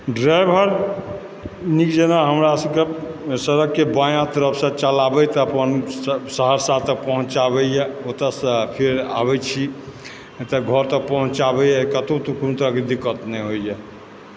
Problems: background sounds at intervals